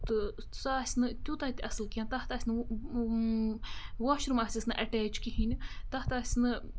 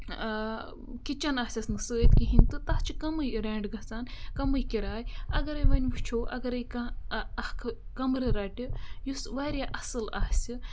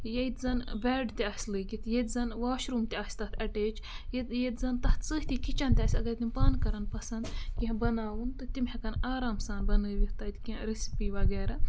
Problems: background sounds at intervals